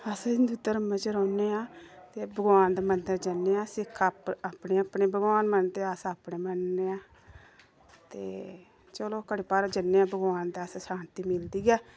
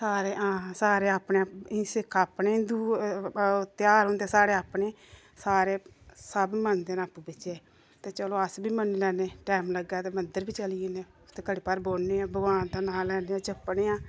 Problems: none marked